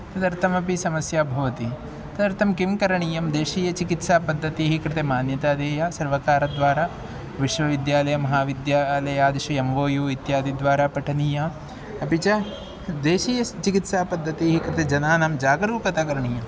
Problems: none marked